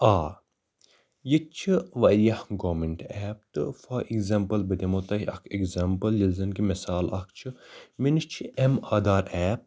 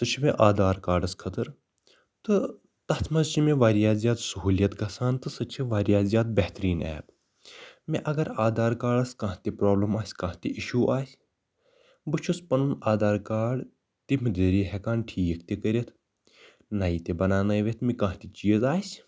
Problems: background sounds at intervals